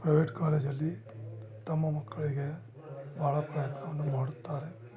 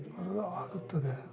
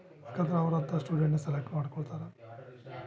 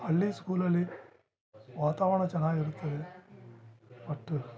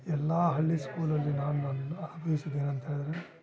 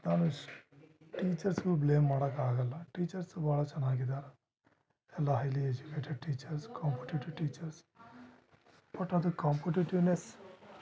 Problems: none marked